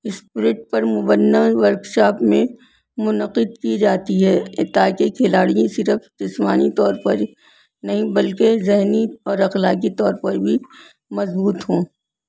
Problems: none marked